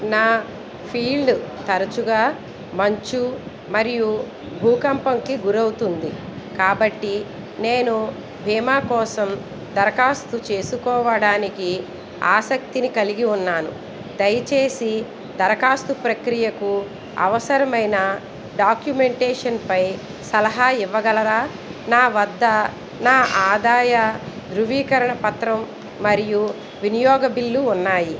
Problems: none marked